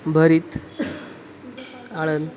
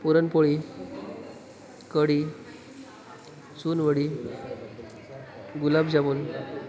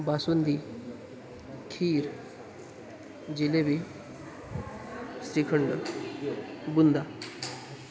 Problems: constant background noise